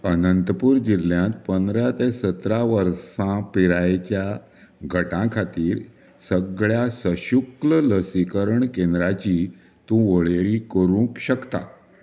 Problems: none marked